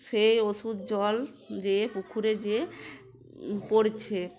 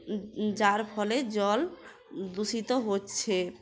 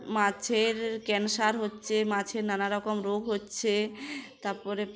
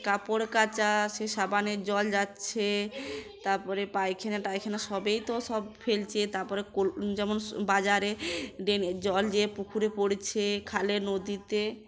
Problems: constant background noise, background conversations at intervals